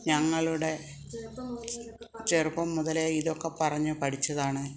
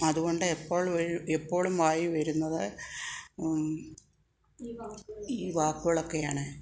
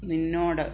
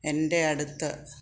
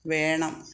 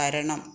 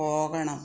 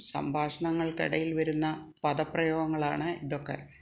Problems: background conversations at intervals